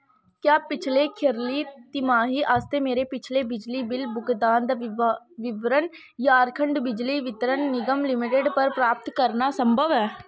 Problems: constant background noise